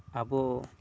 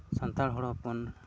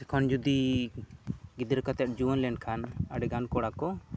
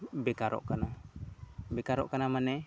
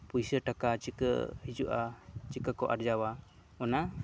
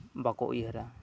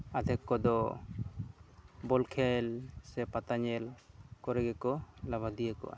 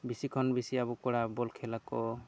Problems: background conversations at intervals